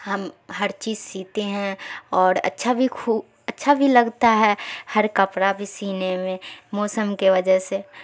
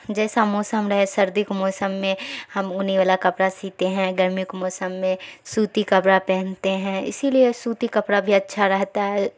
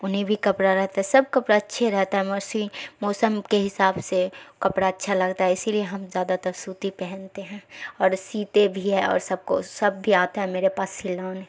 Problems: none marked